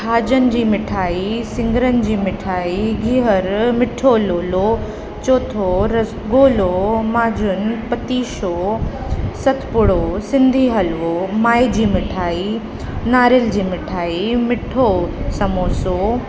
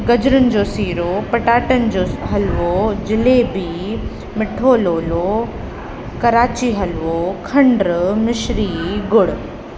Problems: constant background noise